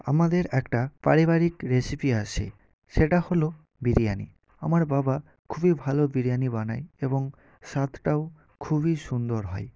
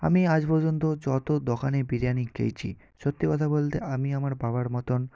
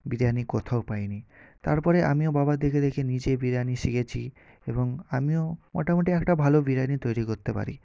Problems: none marked